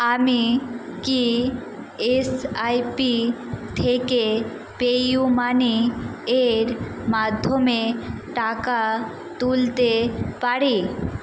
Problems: constant background noise